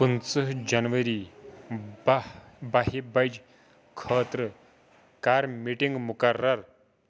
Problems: background conversations at intervals